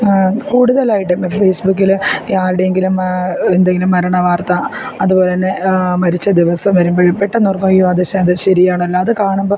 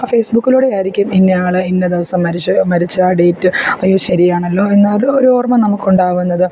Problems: background sounds at intervals